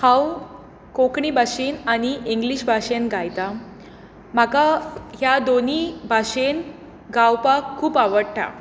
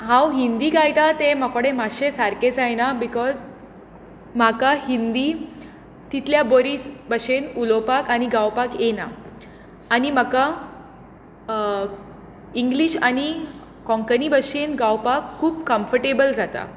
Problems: constant background noise